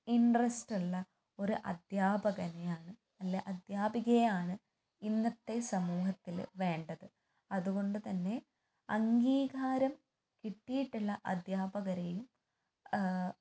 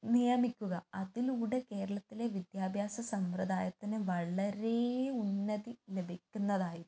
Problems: low volume